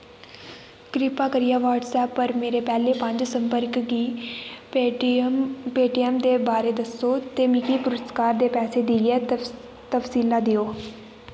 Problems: constant background noise